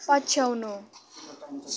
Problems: constant background noise